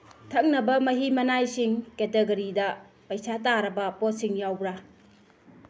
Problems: background sounds at intervals